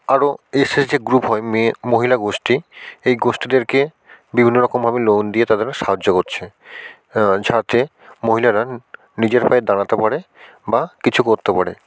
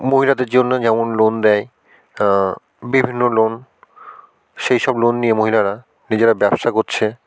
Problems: none marked